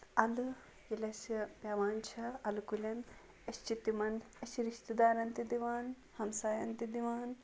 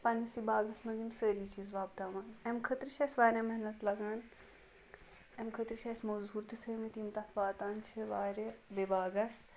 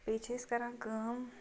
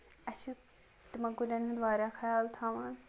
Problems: background sounds at intervals